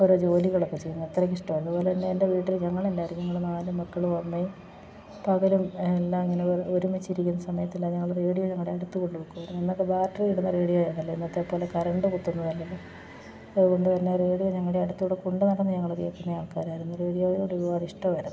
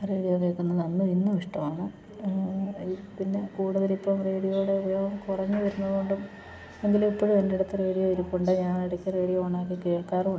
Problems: background sounds at intervals